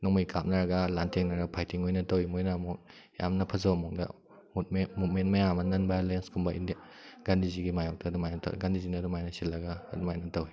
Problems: background sounds at intervals